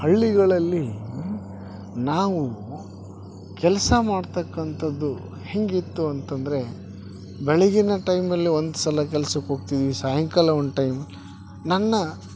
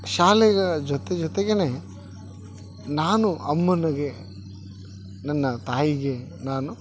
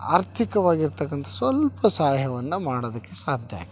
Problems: none marked